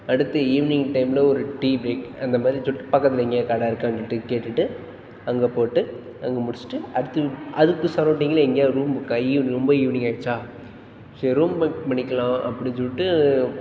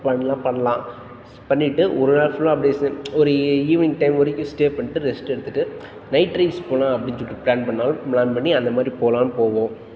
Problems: background sounds at intervals